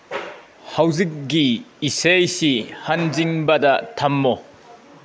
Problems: background sounds at intervals